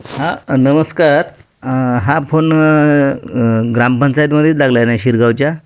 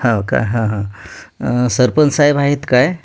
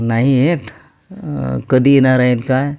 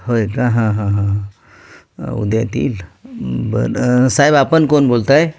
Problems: constant background noise